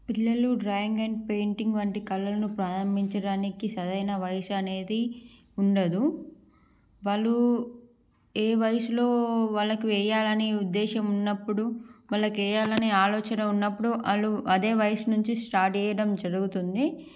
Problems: background sounds at intervals